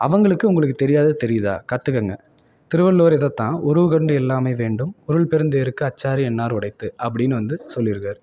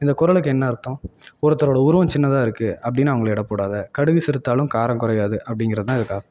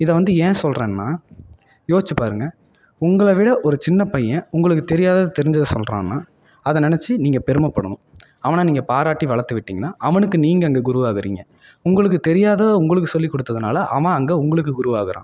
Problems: none marked